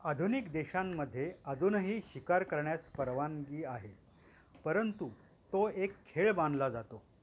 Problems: constant background noise